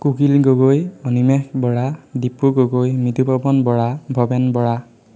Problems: constant background noise, echo